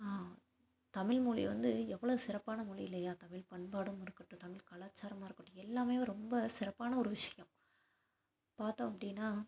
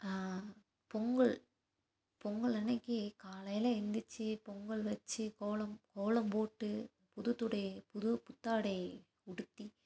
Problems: constant background noise